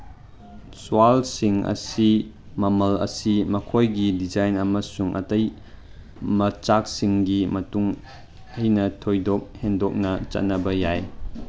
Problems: background sounds at intervals